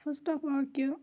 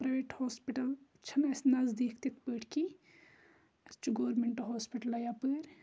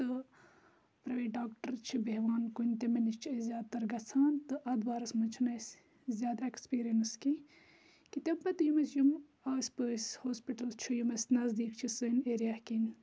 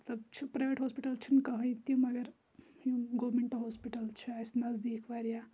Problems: none marked